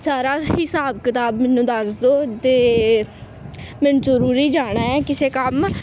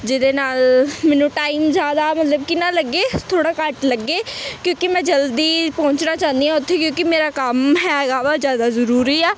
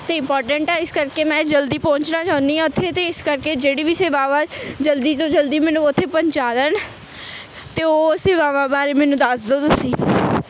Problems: constant background noise